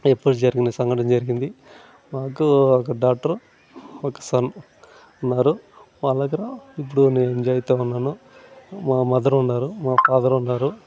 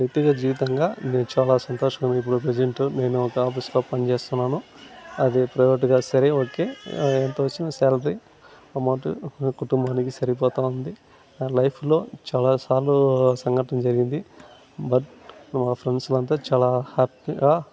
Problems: none marked